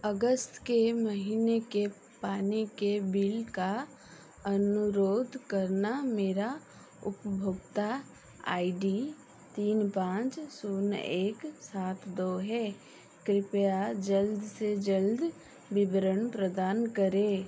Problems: background sounds at intervals